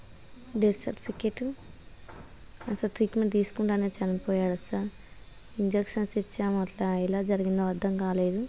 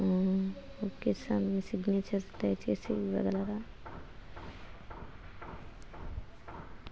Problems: constant background noise